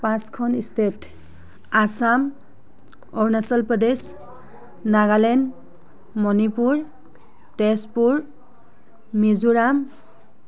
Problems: background sounds at intervals, background conversations at intervals